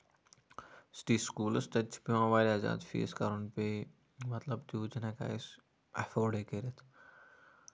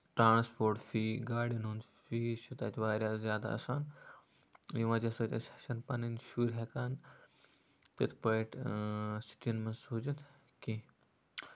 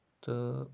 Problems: none marked